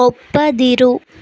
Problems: none marked